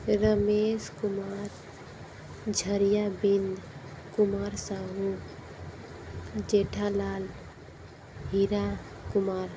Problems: constant background noise, low volume